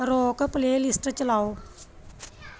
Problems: background conversations at intervals